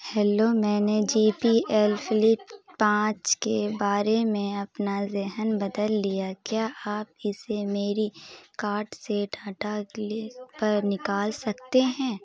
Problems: constant background noise, continuous background conversations